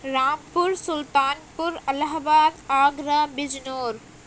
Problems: constant background noise